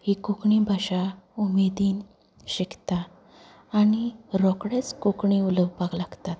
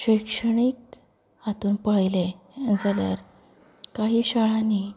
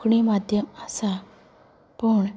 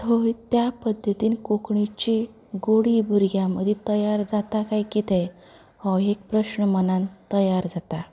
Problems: background sounds at intervals, background conversations at intervals